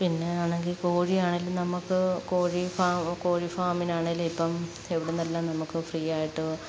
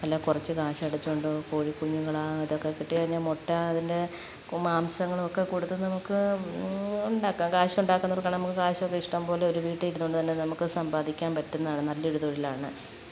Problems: background sounds at intervals